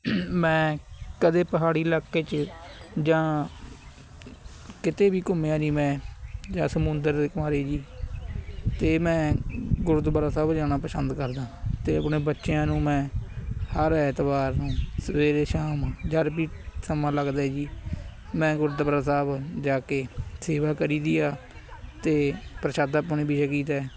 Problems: constant background noise, background conversations at intervals